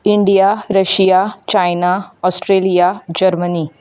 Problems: background sounds at intervals